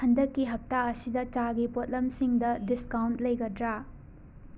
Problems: background sounds at intervals